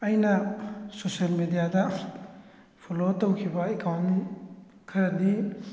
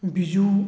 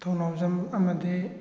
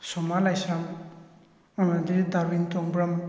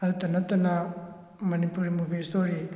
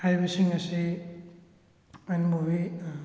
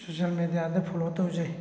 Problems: background sounds at intervals